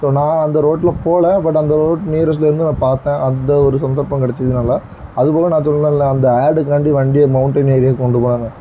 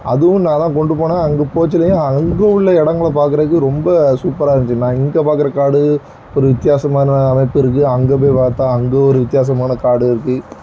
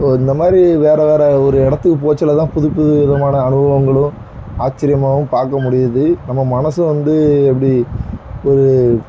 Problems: background sounds at intervals